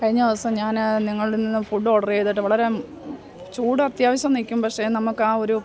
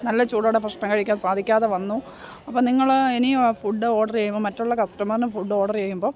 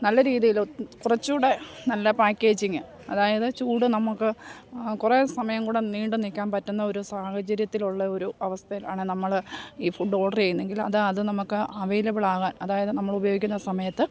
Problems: background sounds at intervals